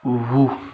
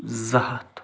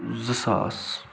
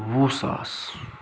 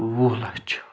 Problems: constant background noise